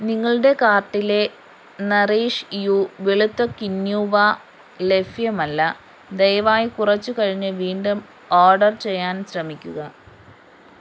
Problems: constant background noise